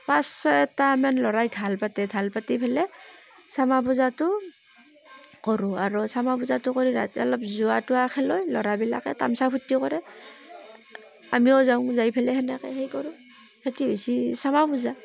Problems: constant background noise